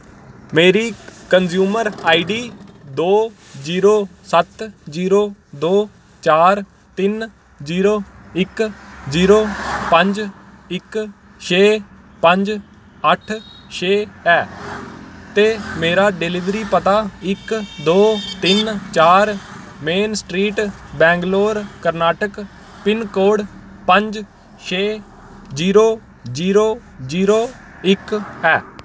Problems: constant background noise